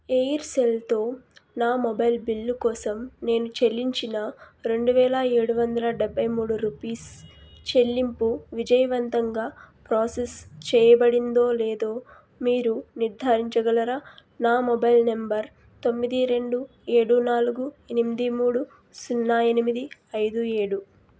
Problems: constant background noise